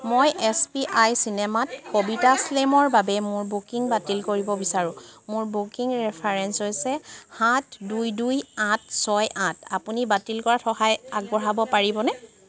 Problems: none marked